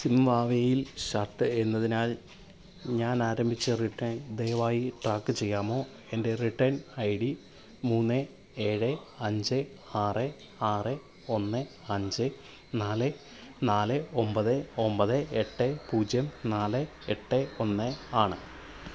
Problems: background sounds at intervals, low volume